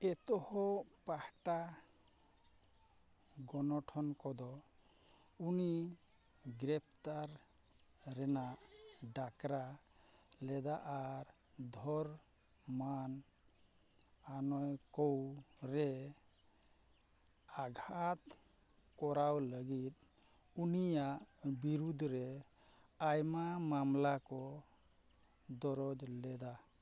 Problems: background sounds at intervals